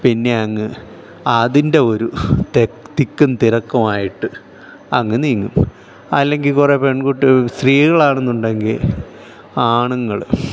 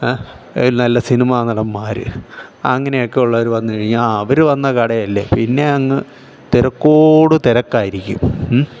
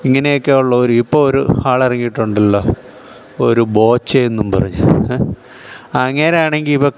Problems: none marked